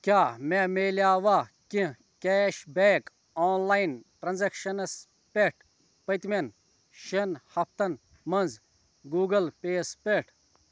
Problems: none marked